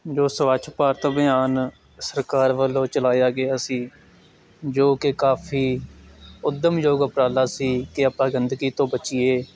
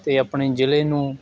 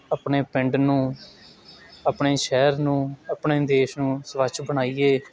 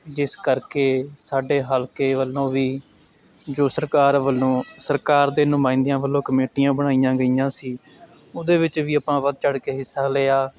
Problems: none marked